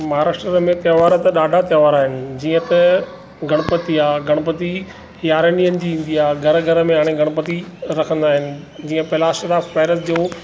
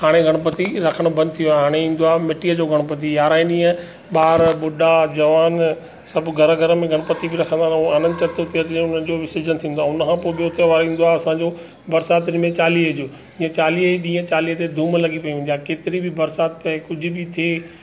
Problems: none marked